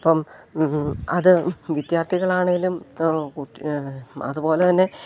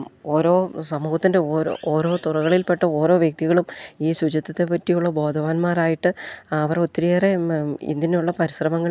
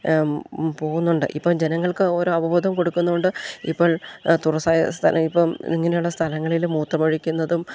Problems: none marked